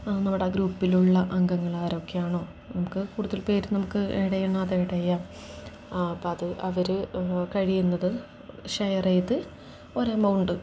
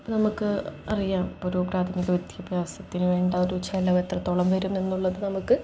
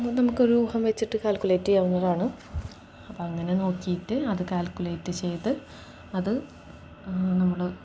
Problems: none marked